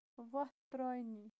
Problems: constant background noise, low volume